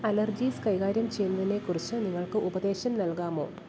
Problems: none marked